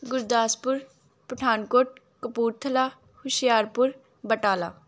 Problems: none marked